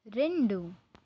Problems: constant background noise